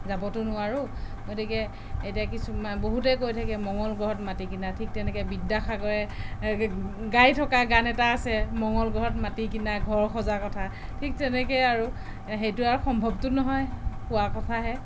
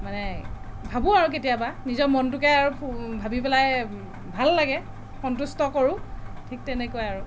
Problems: background conversations at intervals